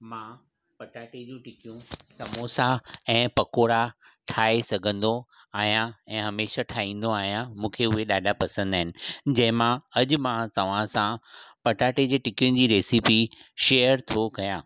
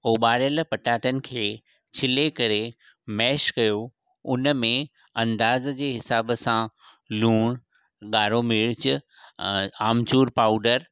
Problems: none marked